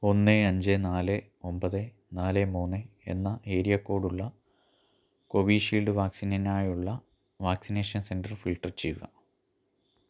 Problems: low volume